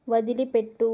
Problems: none marked